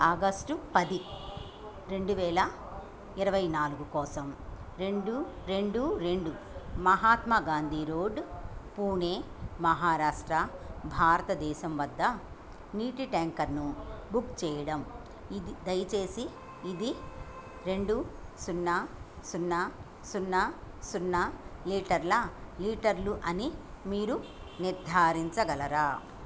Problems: background sounds at intervals